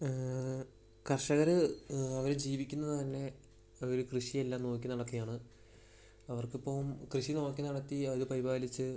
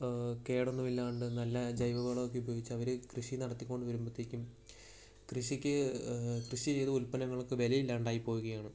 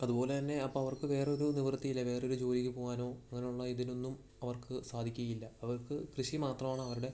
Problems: background sounds at intervals, low volume